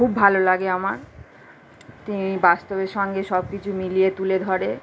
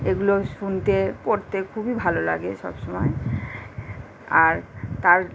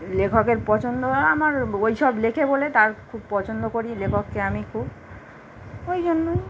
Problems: none marked